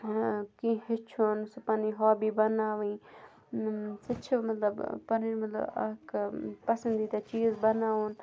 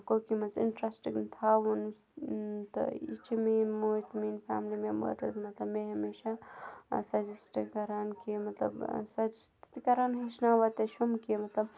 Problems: none marked